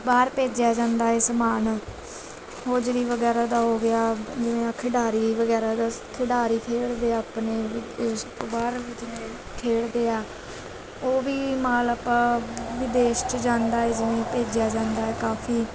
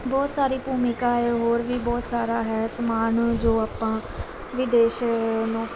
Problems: constant background noise, background conversations at intervals